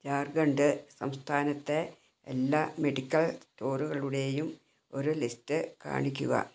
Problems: none marked